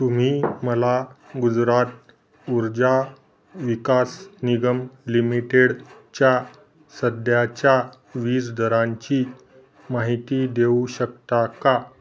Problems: background sounds at intervals